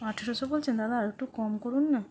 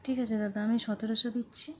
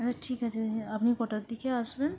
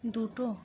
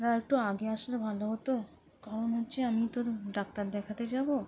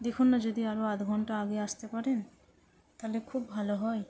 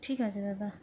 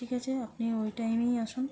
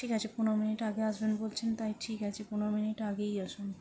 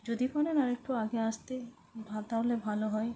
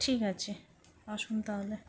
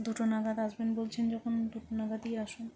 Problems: none marked